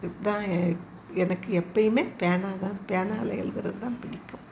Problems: constant background noise